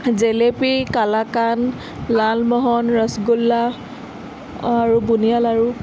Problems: constant background noise, background conversations at intervals